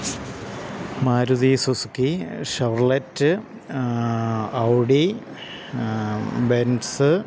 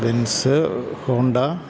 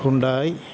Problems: constant background noise, low volume